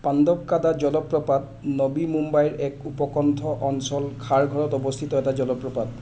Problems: constant background noise